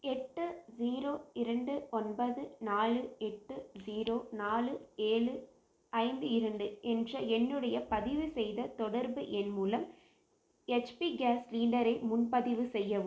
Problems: constant background noise